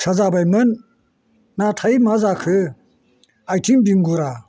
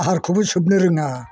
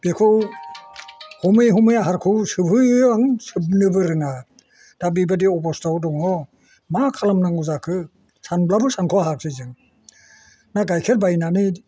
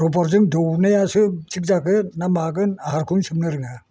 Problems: constant background noise